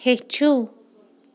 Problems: background sounds at intervals